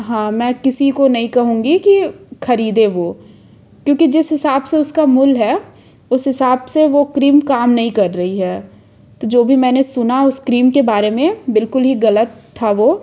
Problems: none marked